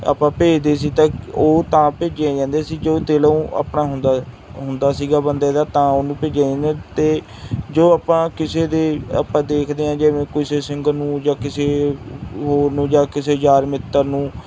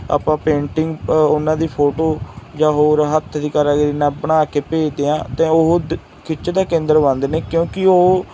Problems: none marked